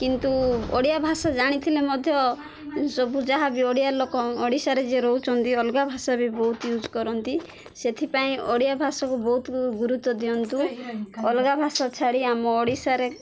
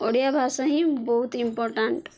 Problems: none marked